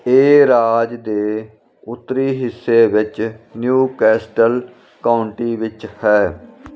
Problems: none marked